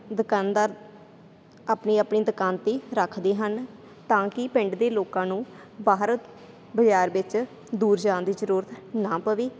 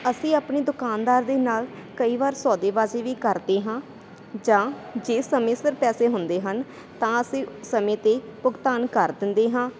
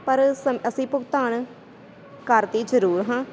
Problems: constant background noise